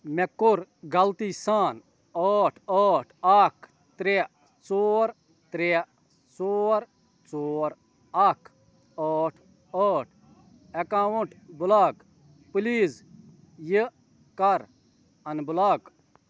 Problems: none marked